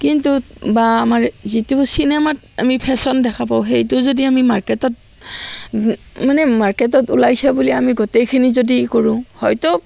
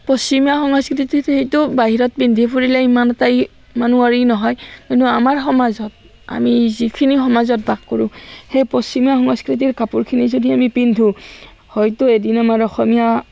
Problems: constant background noise